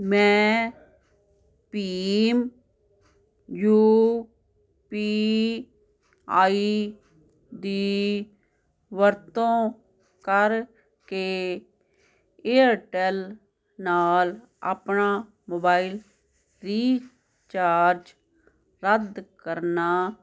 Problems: constant background noise